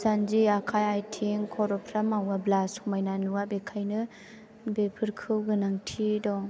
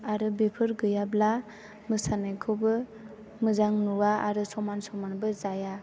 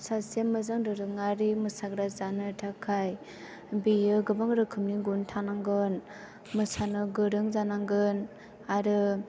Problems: none marked